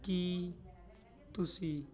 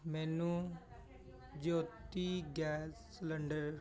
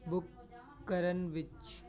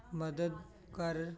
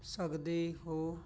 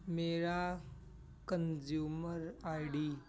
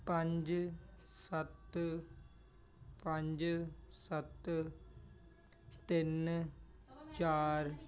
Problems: continuous background conversations